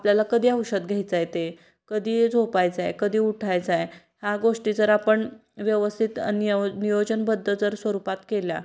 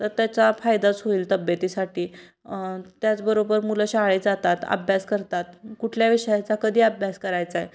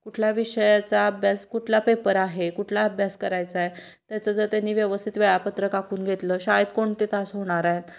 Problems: background sounds at intervals